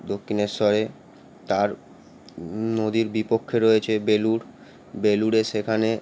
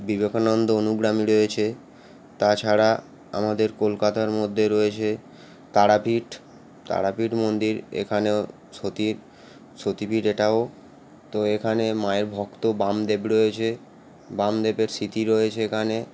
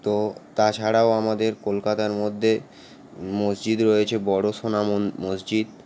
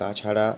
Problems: constant background noise